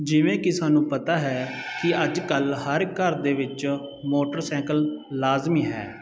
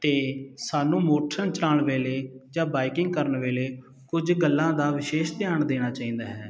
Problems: none marked